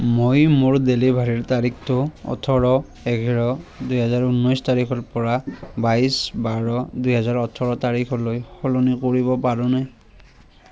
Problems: none marked